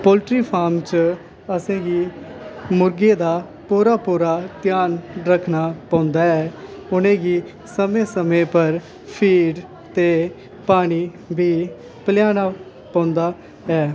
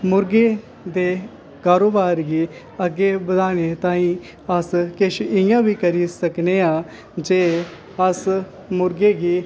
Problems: constant background noise